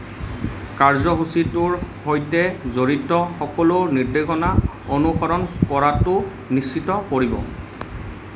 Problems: constant background noise